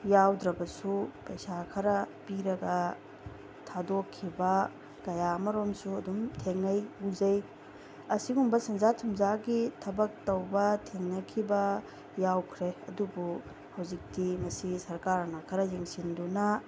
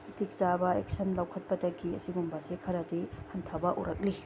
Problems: constant background noise